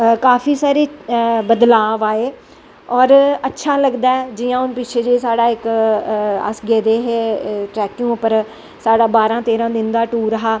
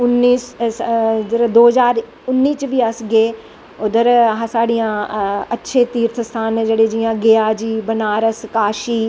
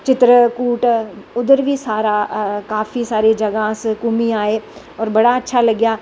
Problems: constant background noise